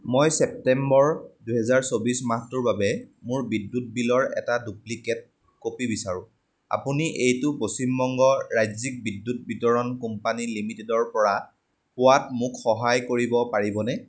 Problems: none marked